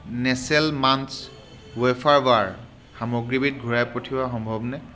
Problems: background sounds at intervals